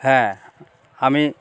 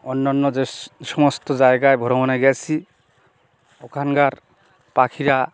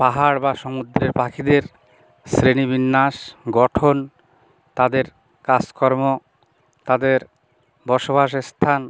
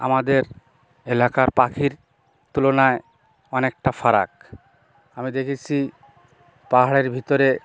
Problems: none marked